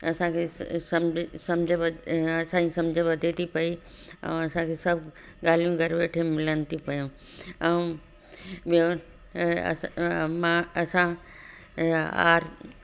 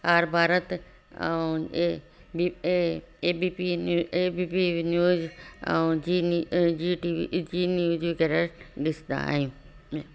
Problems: constant background noise, echo